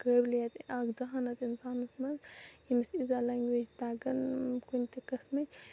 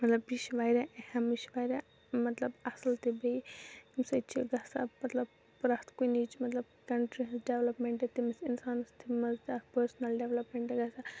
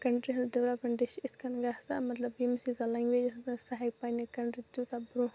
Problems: background sounds at intervals, low volume